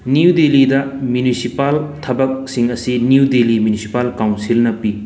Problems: background sounds at intervals